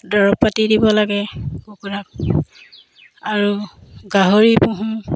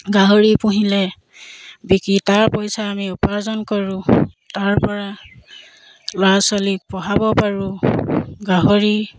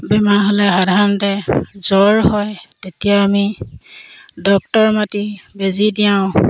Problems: constant background noise, background conversations at intervals